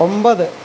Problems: constant background noise